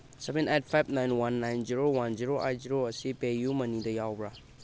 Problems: background sounds at intervals